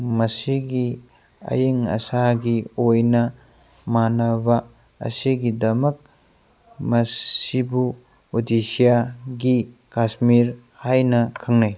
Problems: background sounds at intervals